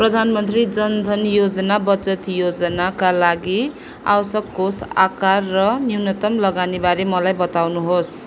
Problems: none marked